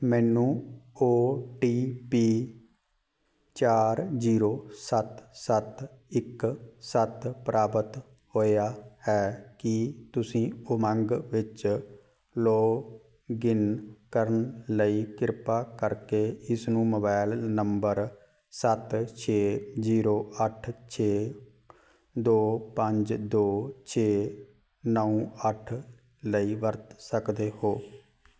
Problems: background sounds at intervals